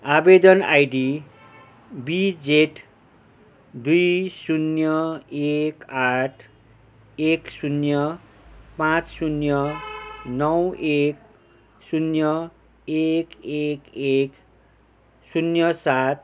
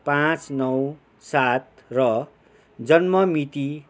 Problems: none marked